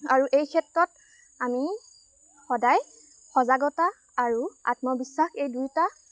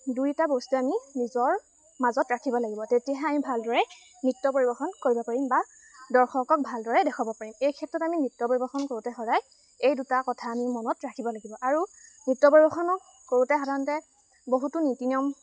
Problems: constant background noise